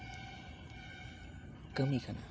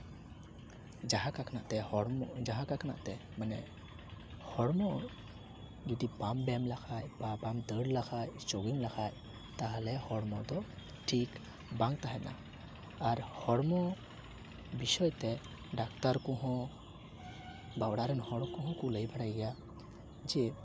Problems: constant background noise, background conversations at intervals